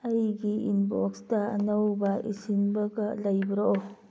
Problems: background sounds at intervals